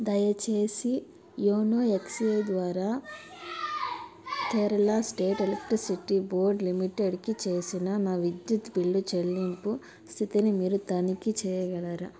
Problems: background conversations at intervals